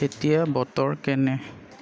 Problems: constant background noise